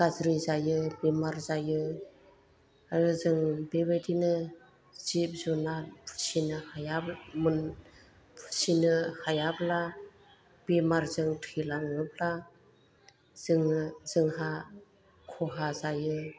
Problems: low volume